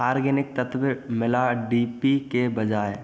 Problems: background sounds at intervals, continuous background conversations